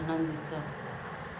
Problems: none marked